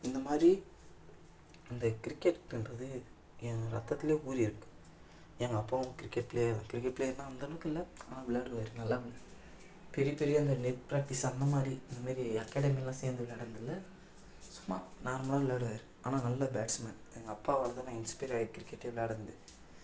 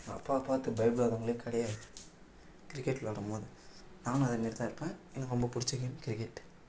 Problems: none marked